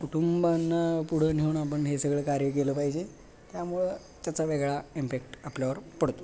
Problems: none marked